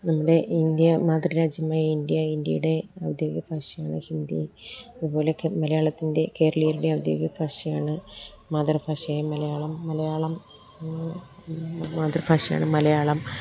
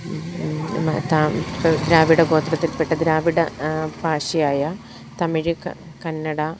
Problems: none marked